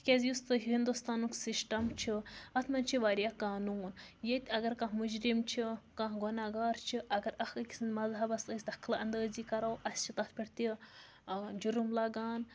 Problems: background sounds at intervals